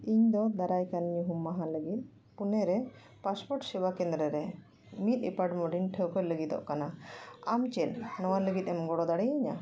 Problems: background conversations at intervals